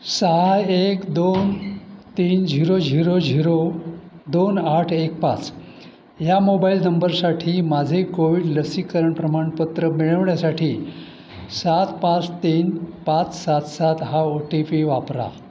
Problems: none marked